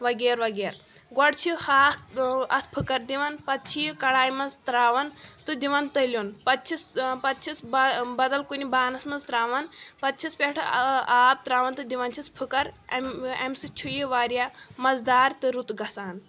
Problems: constant background noise